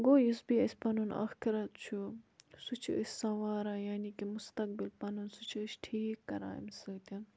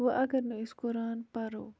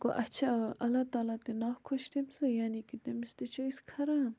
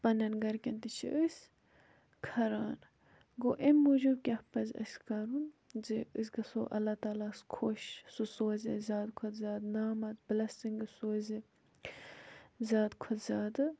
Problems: background sounds at intervals